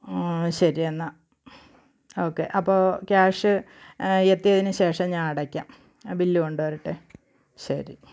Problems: background sounds at intervals